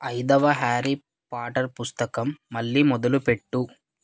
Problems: none marked